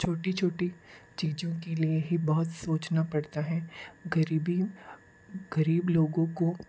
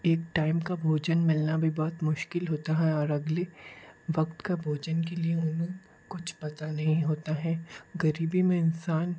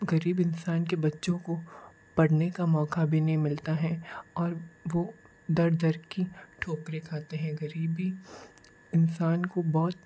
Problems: background sounds at intervals